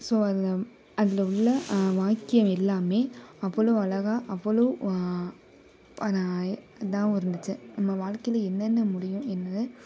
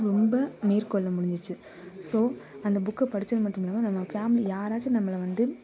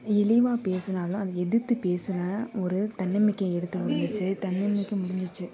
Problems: background conversations at intervals